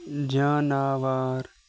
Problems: background sounds at intervals